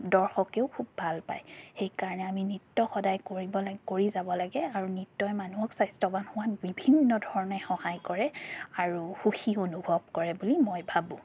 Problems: background sounds at intervals, background conversations at intervals